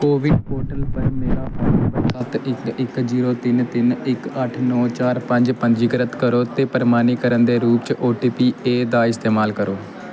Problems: constant background noise